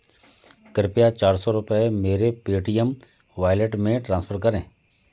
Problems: background sounds at intervals